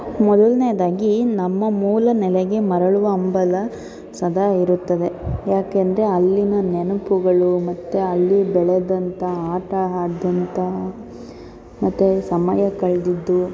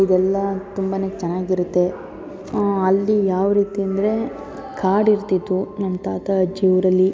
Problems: constant background noise, continuous background conversations